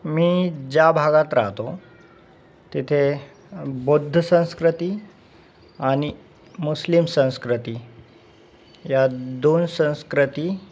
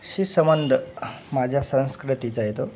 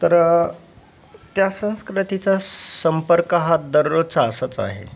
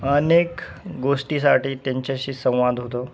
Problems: background sounds at intervals